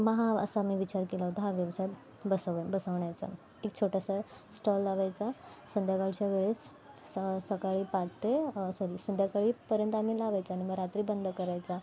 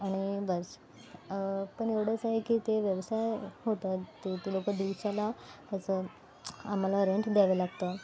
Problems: constant background noise